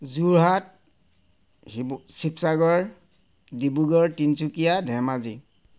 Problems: none marked